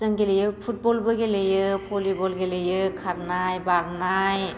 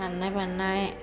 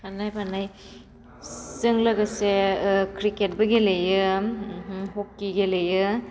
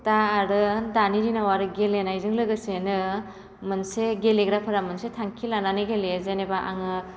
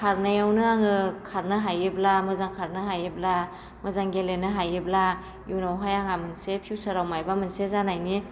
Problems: none marked